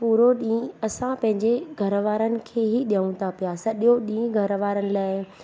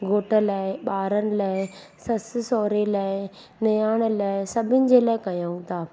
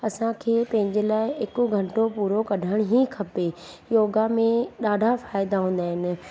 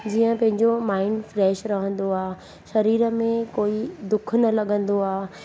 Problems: constant background noise